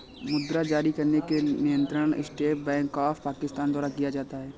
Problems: constant background noise